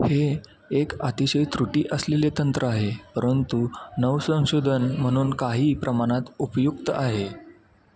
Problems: none marked